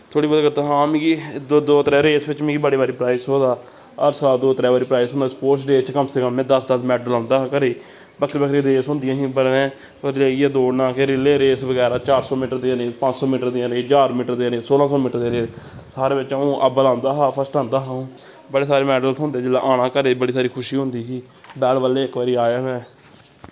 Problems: constant background noise